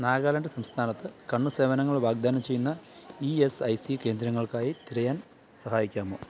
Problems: background sounds at intervals